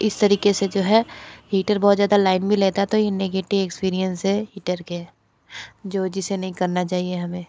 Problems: background sounds at intervals